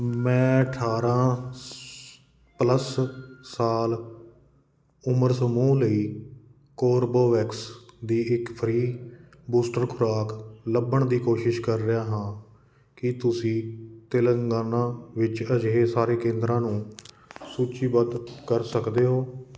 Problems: constant background noise